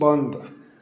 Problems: background sounds at intervals